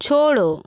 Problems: background sounds at intervals